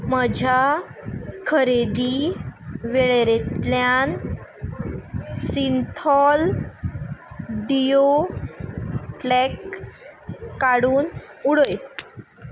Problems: background sounds at intervals